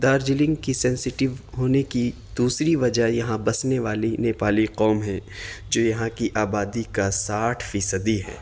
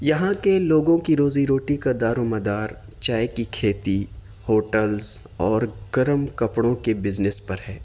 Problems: constant background noise